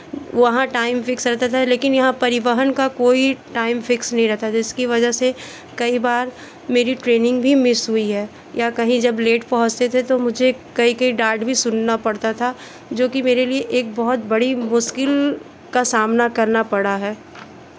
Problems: constant background noise, continuous background conversations